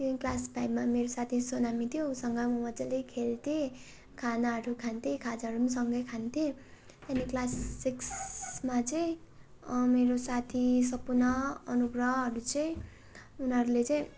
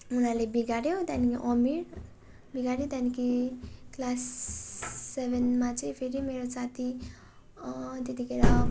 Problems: constant background noise